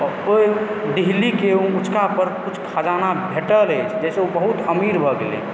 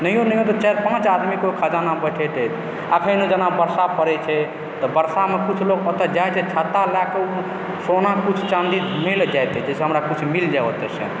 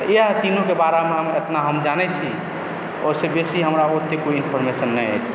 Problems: constant background noise